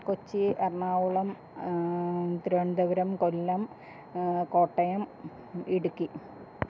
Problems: none marked